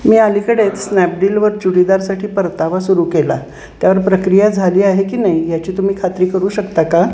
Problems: constant background noise, background conversations at intervals